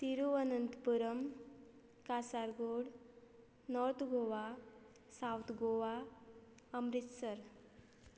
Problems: constant background noise